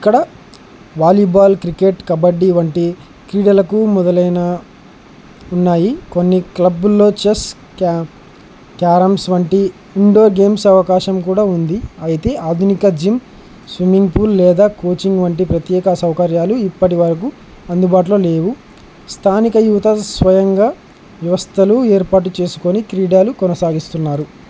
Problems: constant background noise